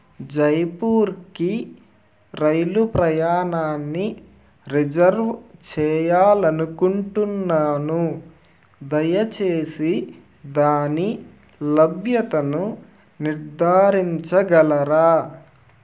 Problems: none marked